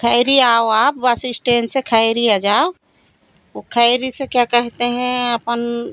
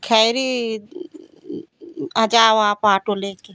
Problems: constant background noise